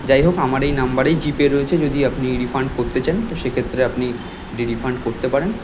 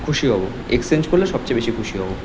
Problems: constant background noise